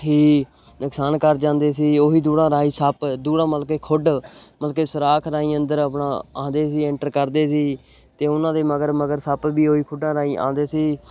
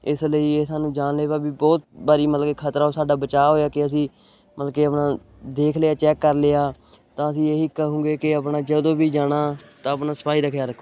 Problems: none marked